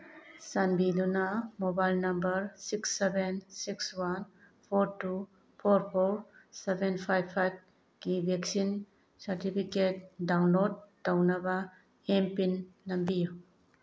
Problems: none marked